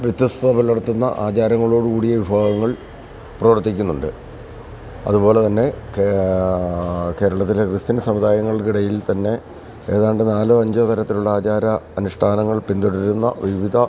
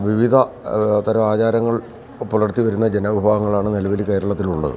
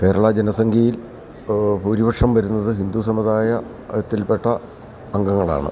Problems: constant background noise, background conversations at intervals, low volume